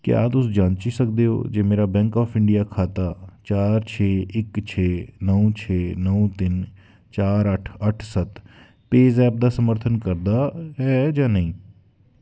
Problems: none marked